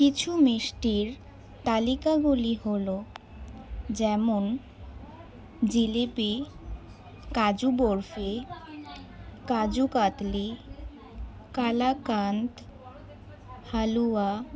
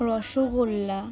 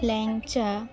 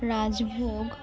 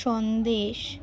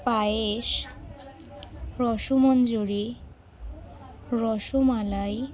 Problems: background sounds at intervals, continuous background conversations